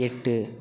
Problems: constant background noise